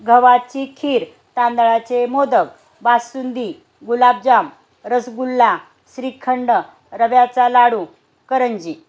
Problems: constant background noise